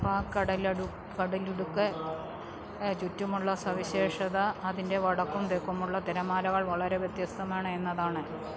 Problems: low volume